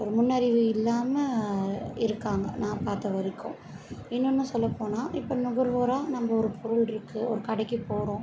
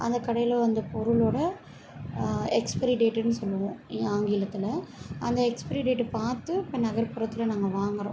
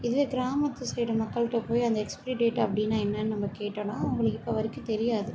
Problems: none marked